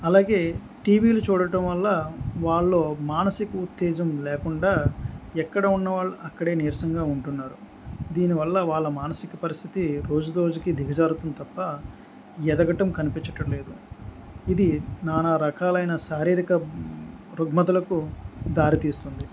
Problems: background sounds at intervals